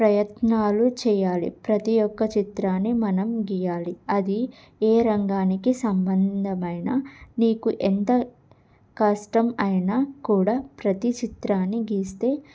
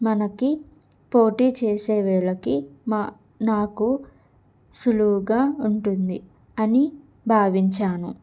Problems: none marked